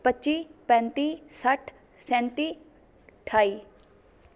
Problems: background conversations at intervals